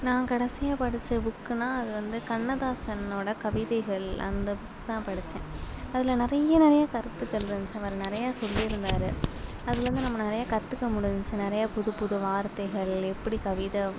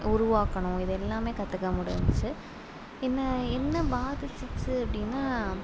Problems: background sounds at intervals